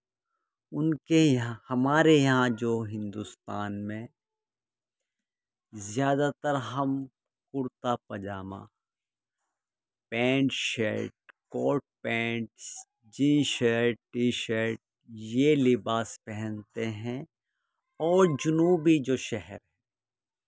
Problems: background sounds at intervals